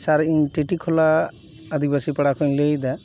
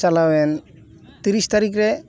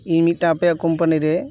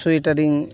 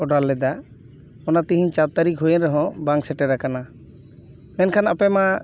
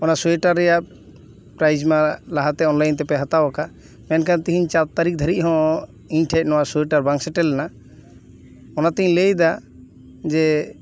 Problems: none marked